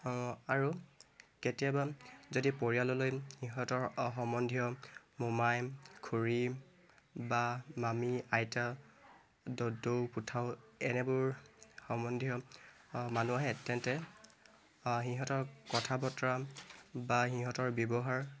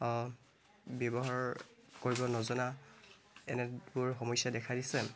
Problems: constant background noise